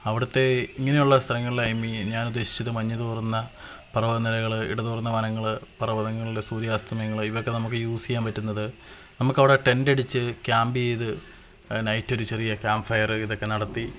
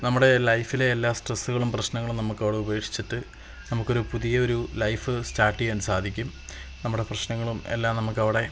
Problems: constant background noise